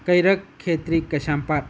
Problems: none marked